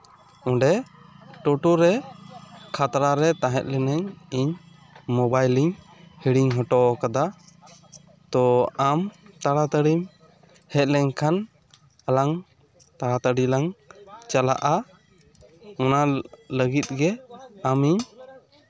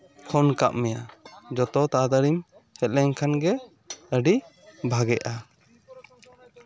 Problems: background sounds at intervals